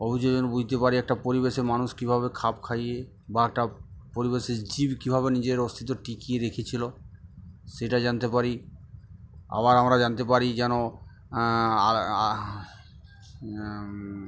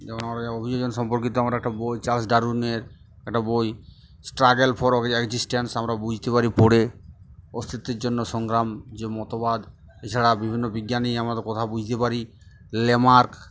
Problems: background sounds at intervals